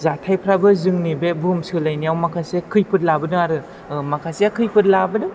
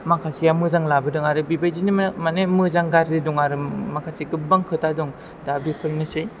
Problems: none marked